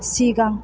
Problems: none marked